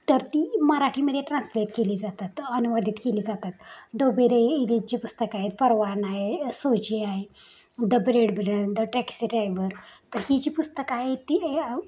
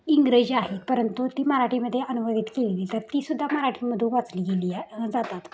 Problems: none marked